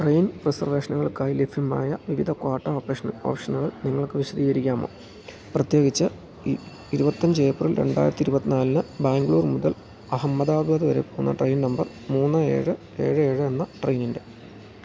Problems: background sounds at intervals